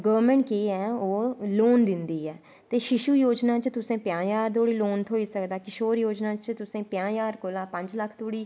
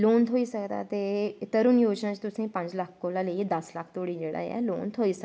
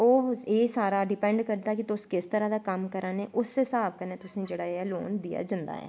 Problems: none marked